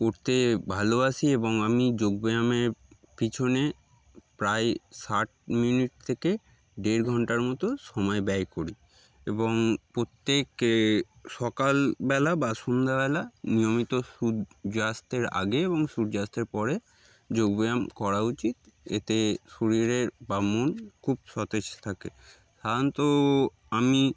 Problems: background sounds at intervals